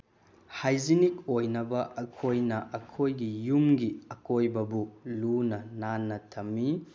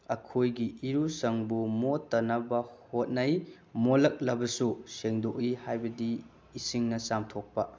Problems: none marked